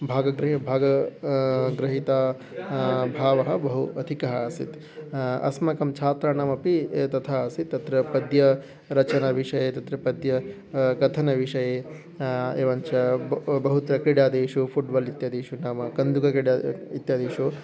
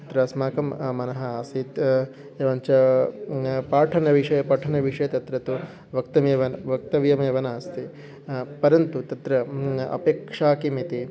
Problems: background sounds at intervals